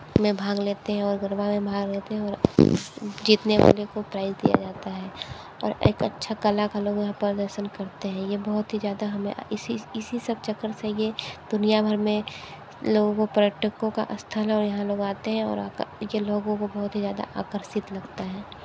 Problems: low volume